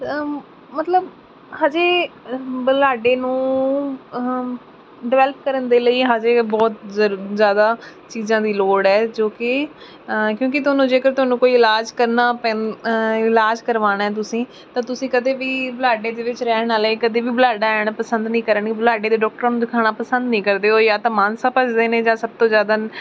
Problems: none marked